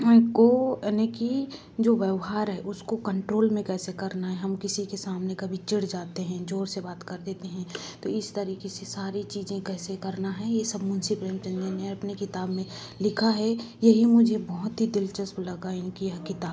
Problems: background sounds at intervals